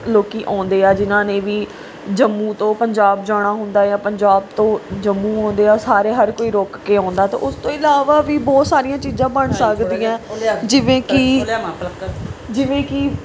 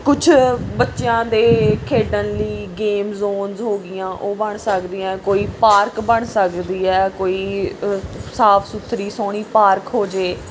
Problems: background sounds at intervals, background conversations at intervals